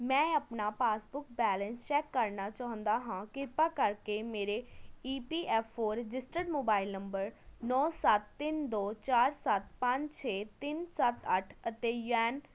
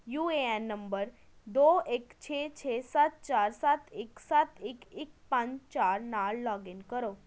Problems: constant background noise